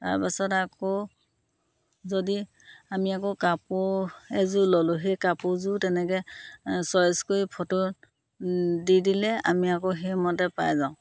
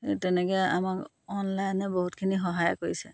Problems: constant background noise